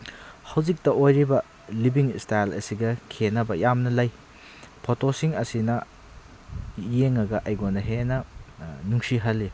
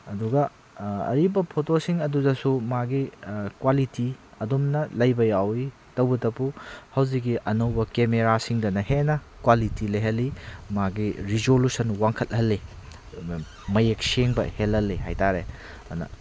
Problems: constant background noise